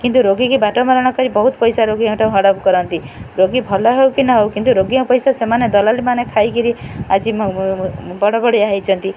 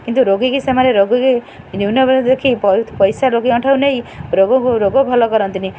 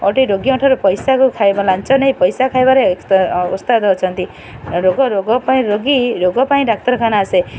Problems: constant background noise